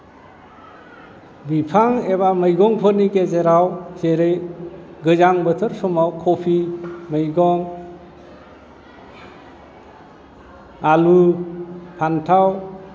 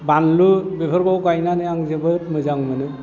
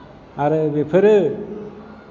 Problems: none marked